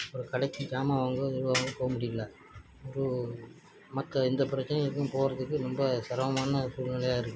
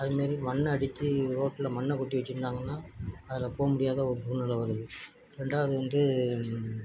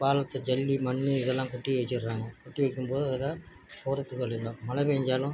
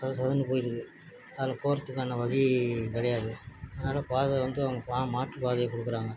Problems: none marked